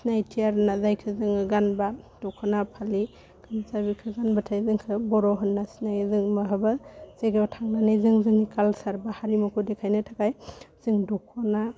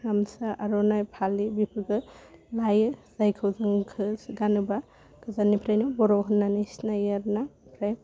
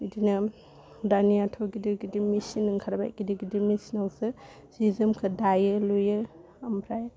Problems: constant background noise